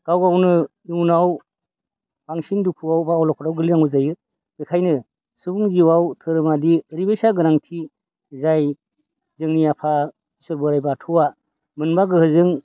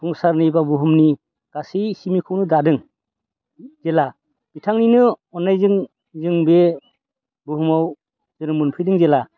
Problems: constant background noise